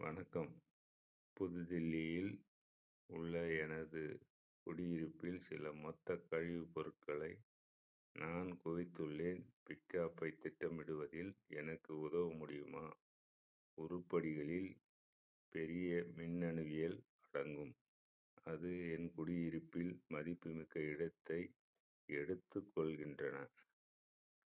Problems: low volume